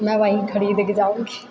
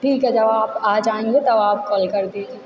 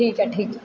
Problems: none marked